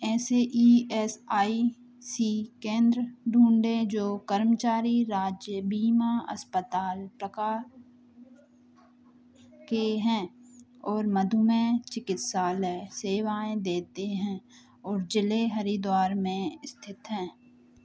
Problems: none marked